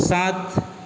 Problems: none marked